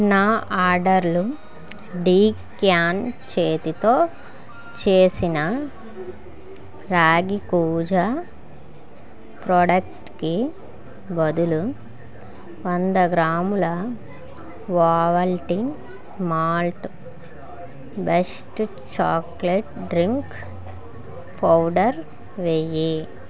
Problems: continuous background conversations